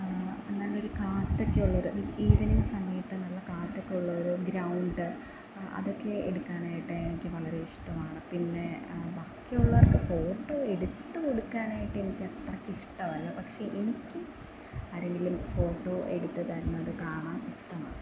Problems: constant background noise, low volume